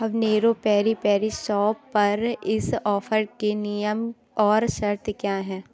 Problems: background sounds at intervals, background conversations at intervals